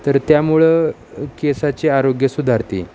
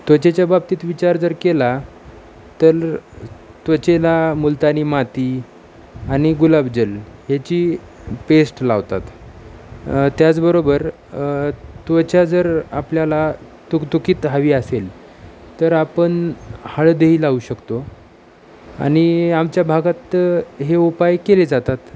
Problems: none marked